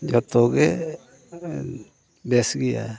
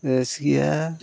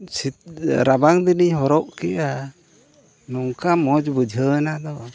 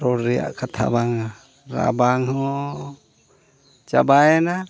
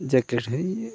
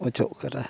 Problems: background sounds at intervals, background conversations at intervals